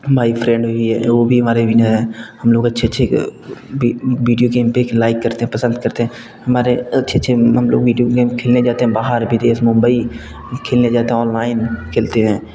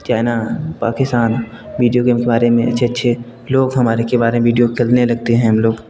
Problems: constant background noise, background conversations at intervals